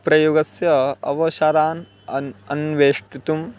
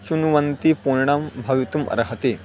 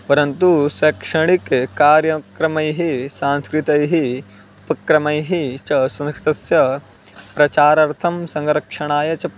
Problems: background sounds at intervals